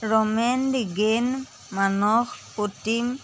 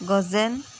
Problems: none marked